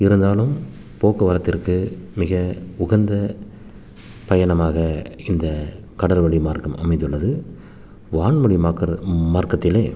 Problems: constant background noise